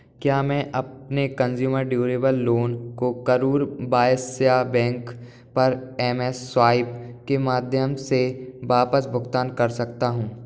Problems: none marked